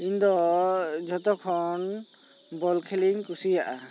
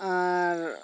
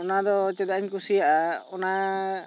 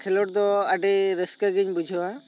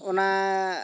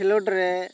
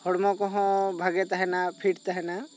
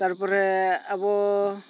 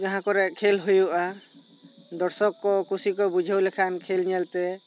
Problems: constant background noise